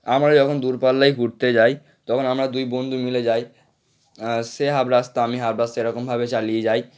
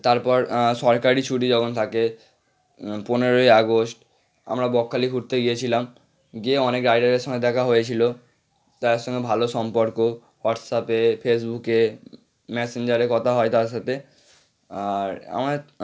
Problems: background sounds at intervals